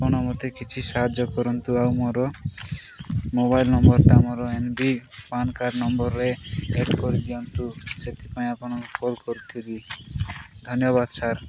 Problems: constant background noise, background conversations at intervals